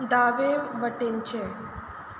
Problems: constant background noise